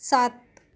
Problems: constant background noise